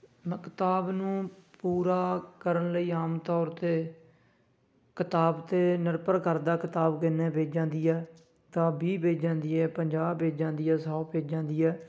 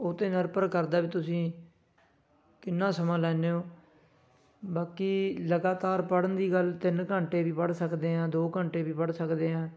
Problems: background sounds at intervals, continuous background conversations